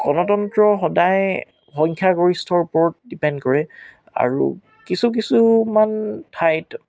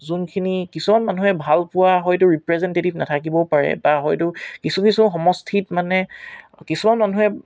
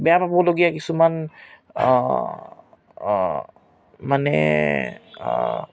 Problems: none marked